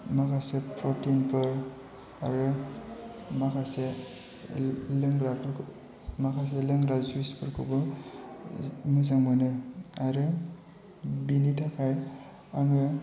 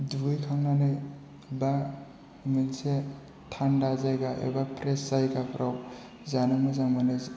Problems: background sounds at intervals